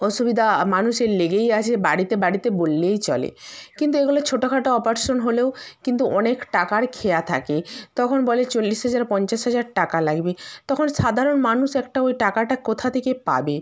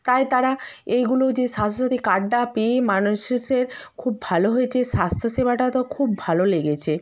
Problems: background sounds at intervals